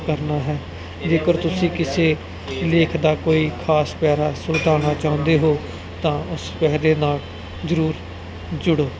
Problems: constant background noise, background conversations at intervals